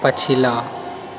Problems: background sounds at intervals